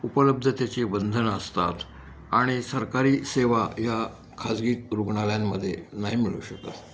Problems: none marked